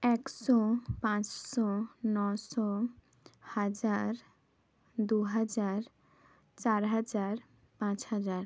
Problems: none marked